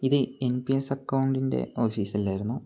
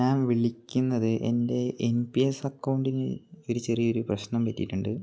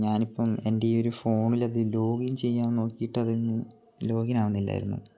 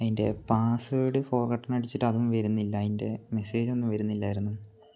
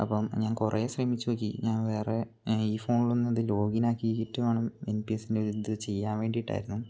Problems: low volume